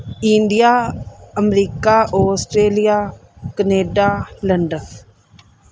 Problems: none marked